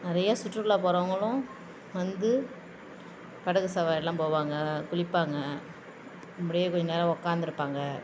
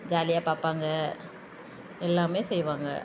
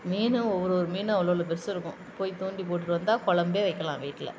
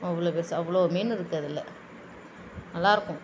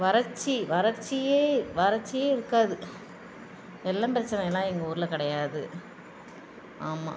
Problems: constant background noise